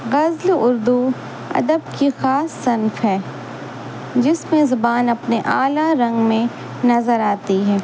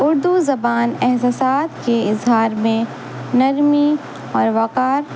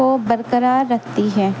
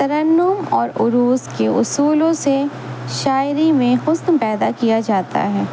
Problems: constant background noise